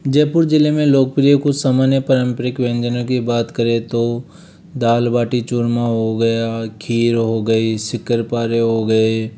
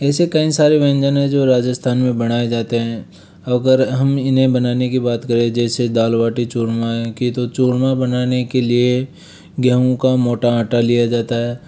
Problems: none marked